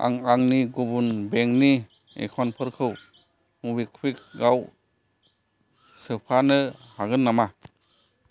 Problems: none marked